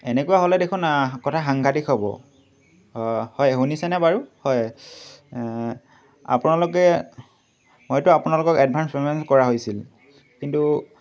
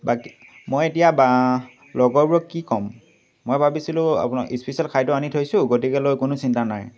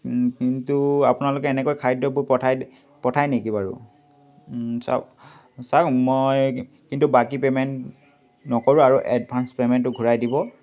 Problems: none marked